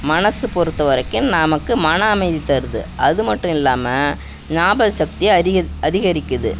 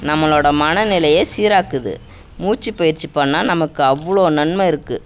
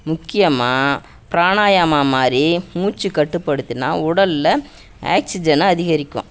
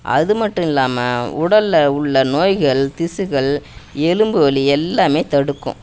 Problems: none marked